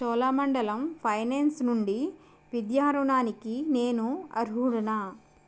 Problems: constant background noise